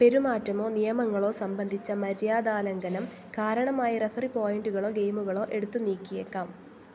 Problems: low volume